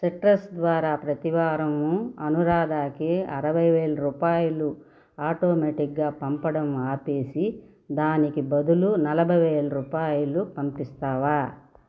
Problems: none marked